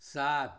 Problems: constant background noise